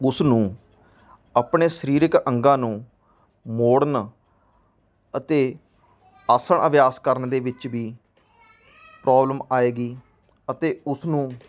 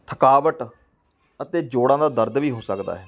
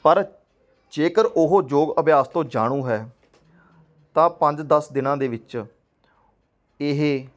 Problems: background conversations at intervals